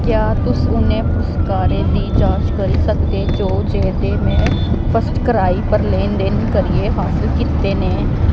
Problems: constant background noise